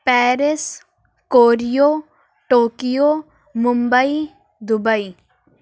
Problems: none marked